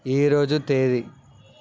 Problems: constant background noise